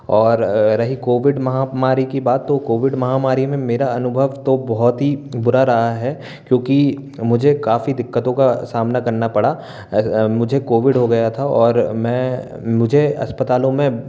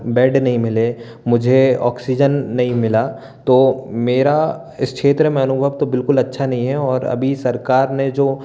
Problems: none marked